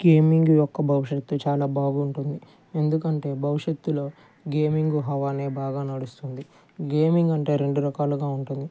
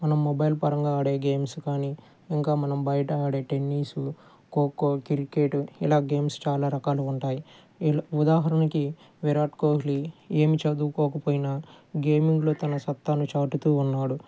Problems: low volume